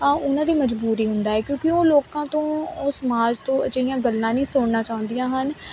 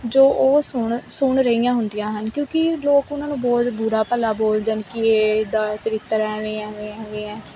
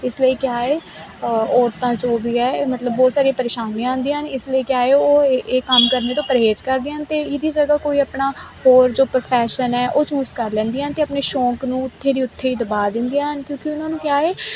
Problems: constant background noise